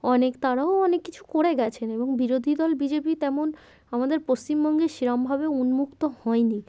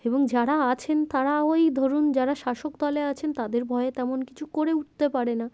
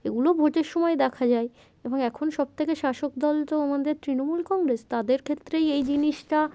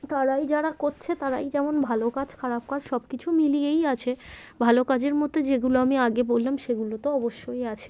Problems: none marked